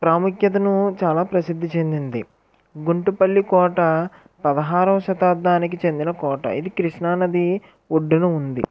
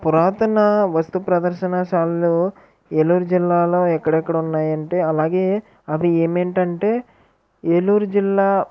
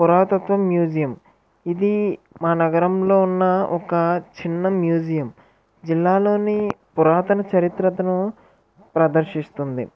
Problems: background conversations at intervals